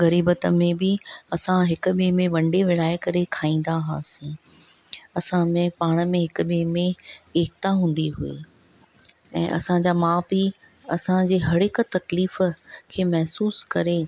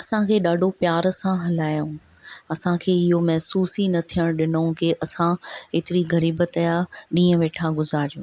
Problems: none marked